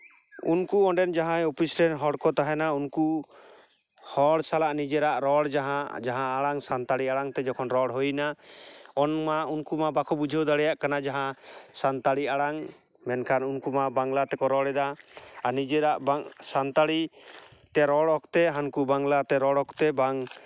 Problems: none marked